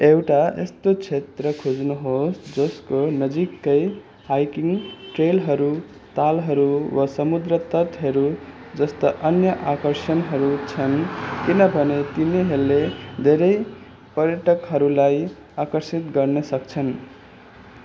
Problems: constant background noise, continuous background conversations